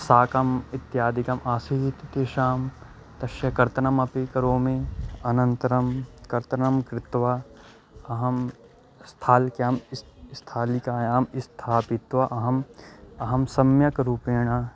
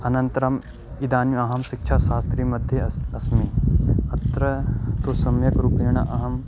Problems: constant background noise